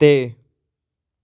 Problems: none marked